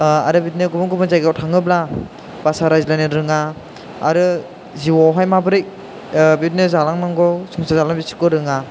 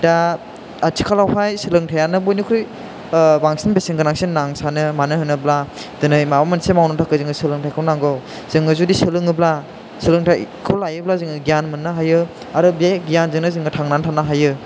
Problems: constant background noise